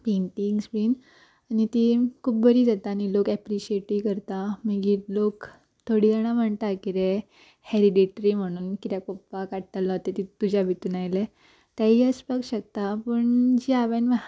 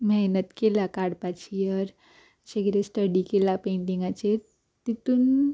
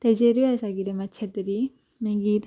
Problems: background sounds at intervals